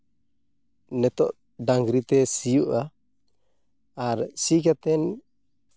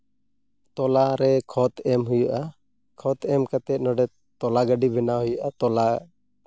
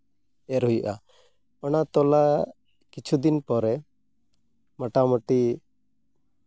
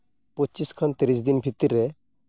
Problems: background sounds at intervals